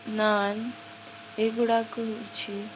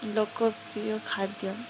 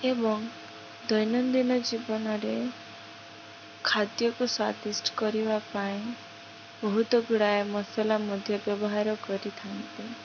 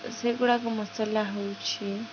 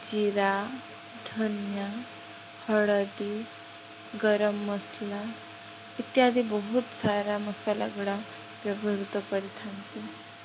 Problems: none marked